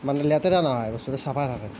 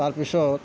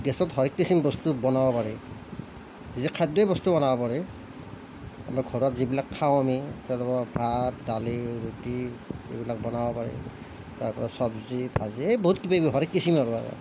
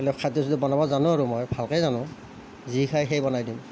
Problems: none marked